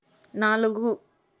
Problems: constant background noise